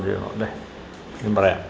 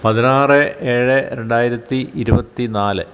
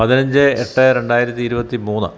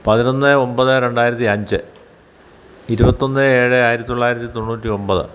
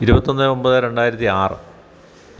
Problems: none marked